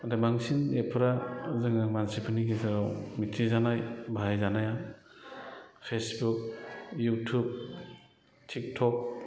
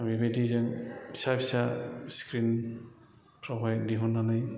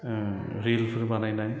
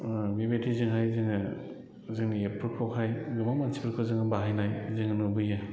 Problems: none marked